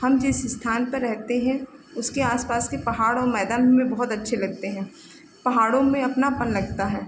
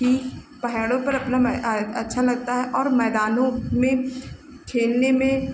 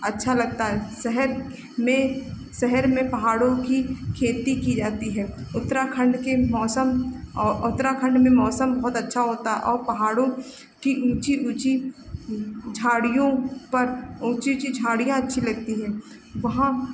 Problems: constant background noise